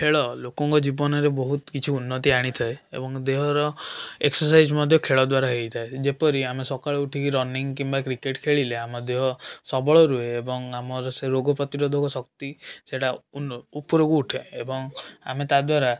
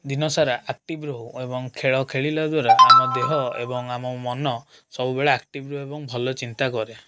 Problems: constant background noise